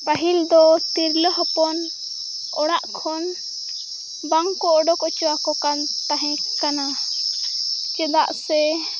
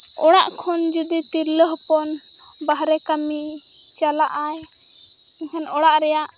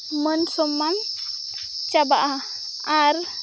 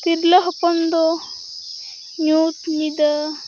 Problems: constant background noise, continuous background conversations